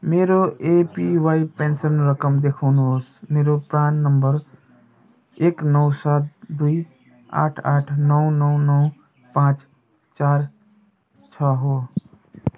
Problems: none marked